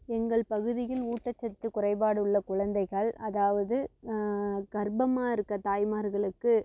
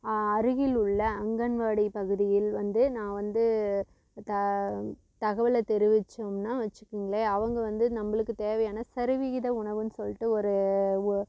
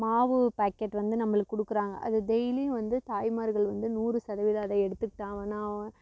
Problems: constant background noise